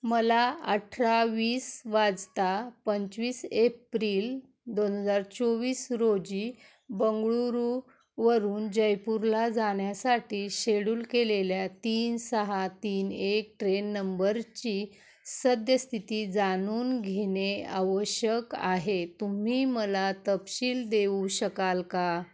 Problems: background sounds at intervals